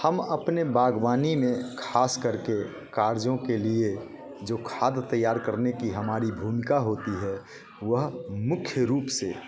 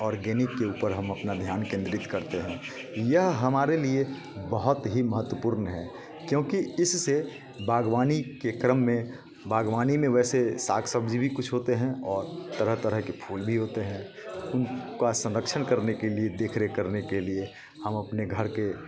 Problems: constant background noise, continuous background conversations